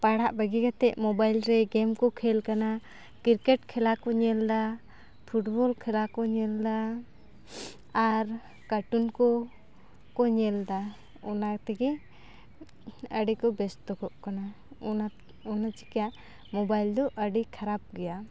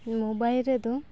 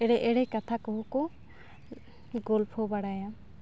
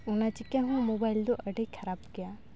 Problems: none marked